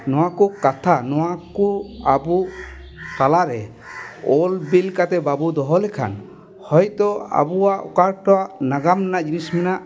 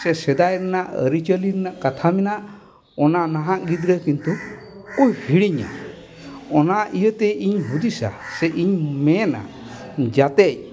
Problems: constant background noise